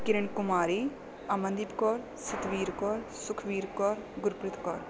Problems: none marked